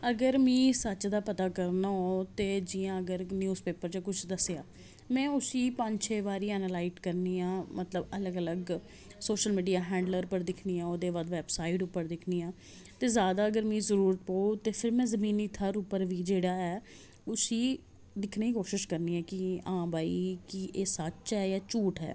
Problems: none marked